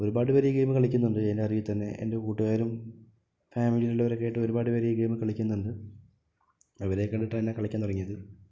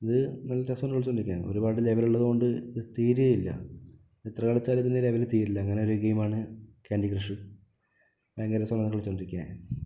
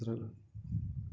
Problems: low volume